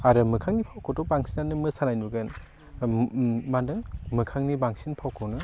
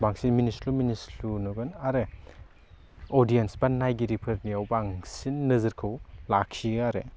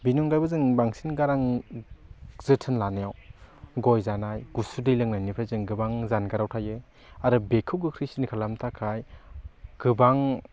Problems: none marked